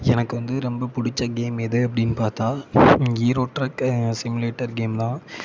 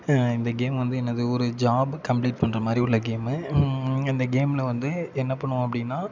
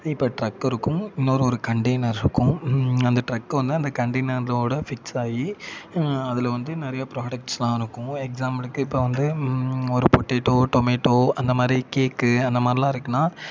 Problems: constant background noise